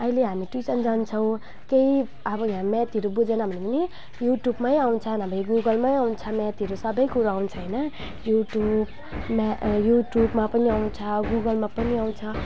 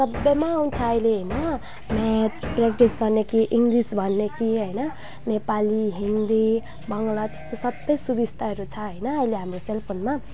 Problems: background sounds at intervals